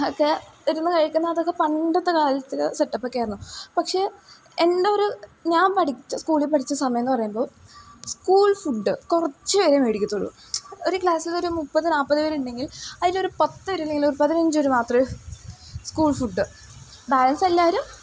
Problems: background sounds at intervals